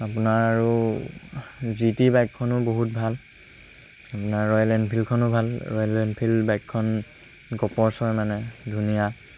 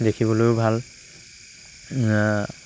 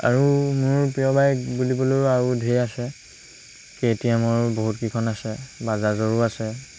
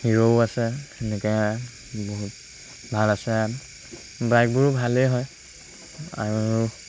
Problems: constant background noise